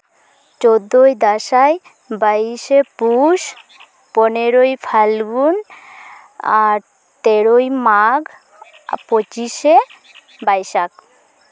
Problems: constant background noise, background conversations at intervals